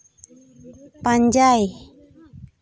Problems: continuous background conversations